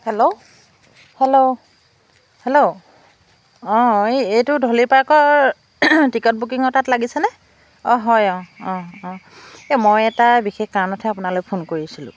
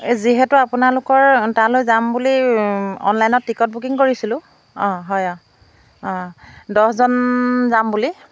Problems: background sounds at intervals